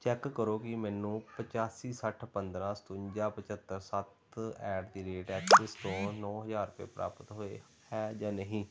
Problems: background sounds at intervals